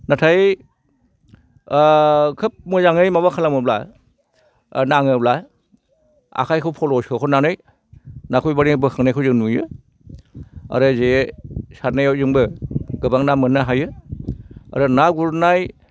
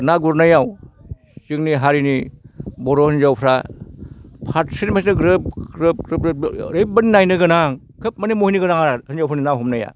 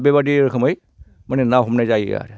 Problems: constant background noise